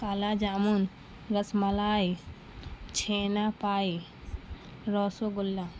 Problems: constant background noise